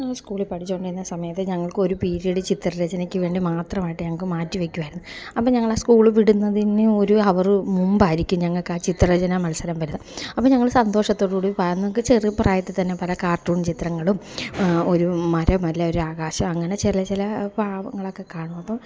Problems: none marked